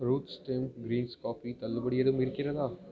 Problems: background conversations at intervals, low volume